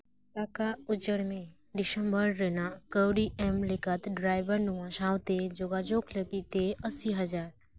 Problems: none marked